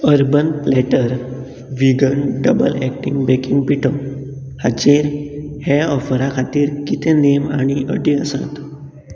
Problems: constant background noise